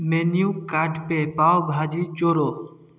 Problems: none marked